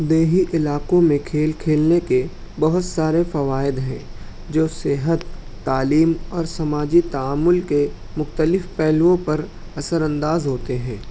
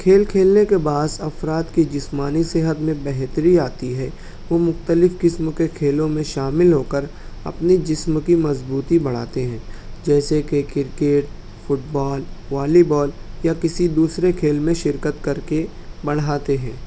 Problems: none marked